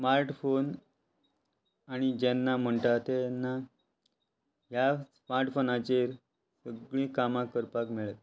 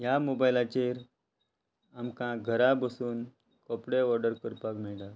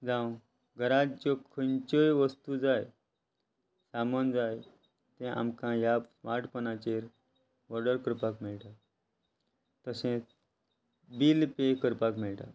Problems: constant background noise